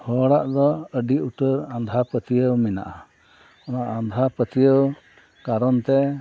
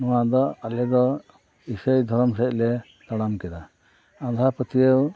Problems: background sounds at intervals, background conversations at intervals